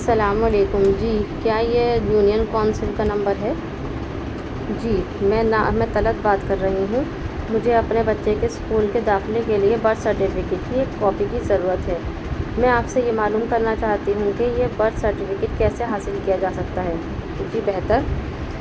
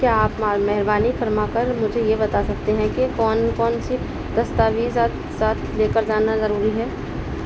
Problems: constant background noise